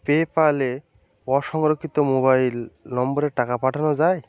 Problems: none marked